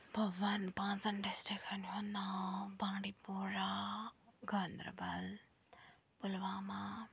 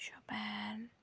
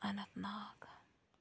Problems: background sounds at intervals, low volume